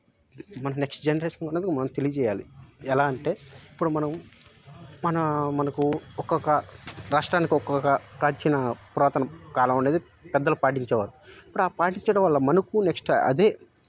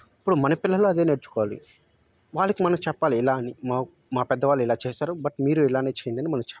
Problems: background sounds at intervals